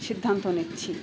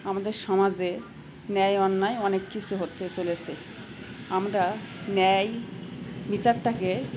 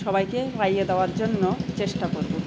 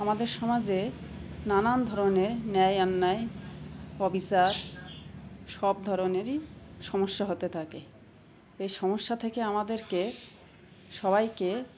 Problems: constant background noise, continuous background conversations